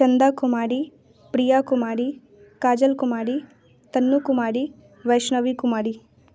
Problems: none marked